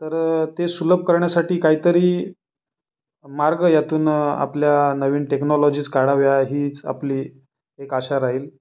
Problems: background sounds at intervals